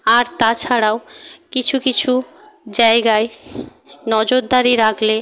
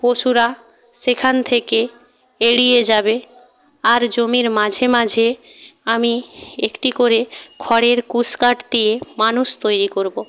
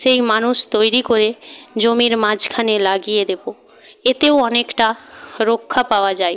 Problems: background conversations at intervals